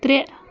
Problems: background sounds at intervals